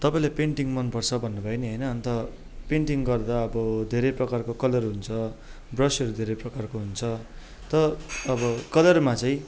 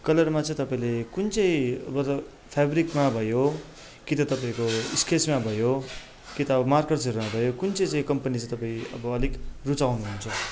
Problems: none marked